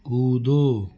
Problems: constant background noise